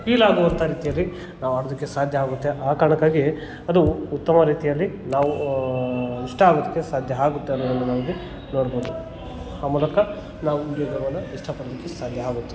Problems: background sounds at intervals, background conversations at intervals